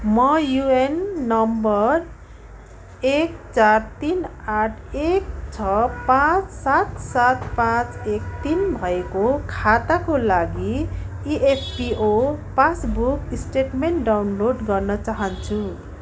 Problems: constant background noise